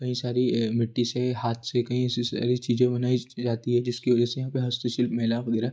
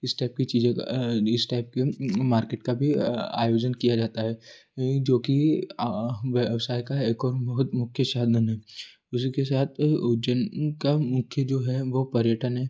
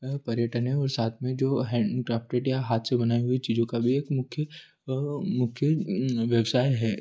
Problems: constant background noise